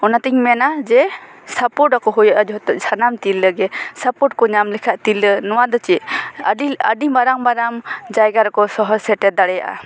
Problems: constant background noise